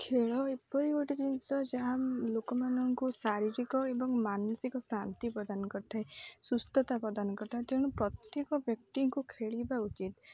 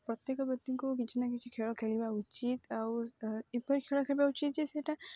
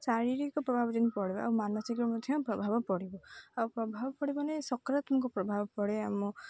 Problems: low volume